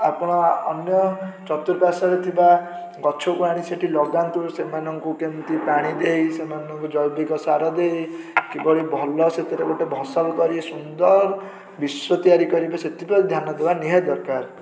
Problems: background sounds at intervals, continuous background conversations